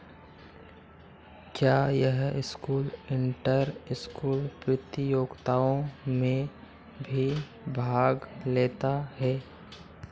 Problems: constant background noise